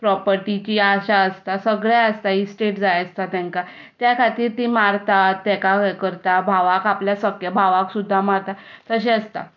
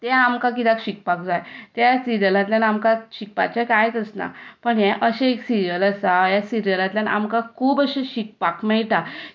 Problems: none marked